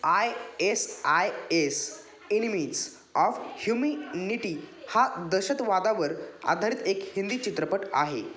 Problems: none marked